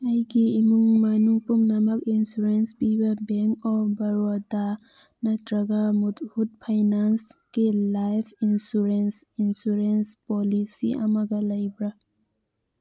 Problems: none marked